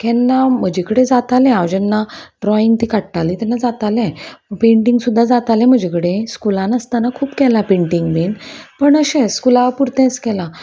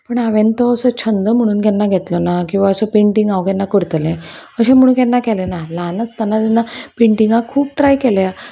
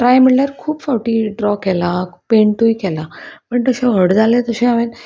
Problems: none marked